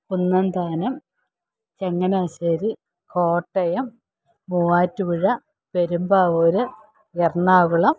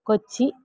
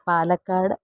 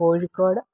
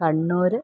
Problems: none marked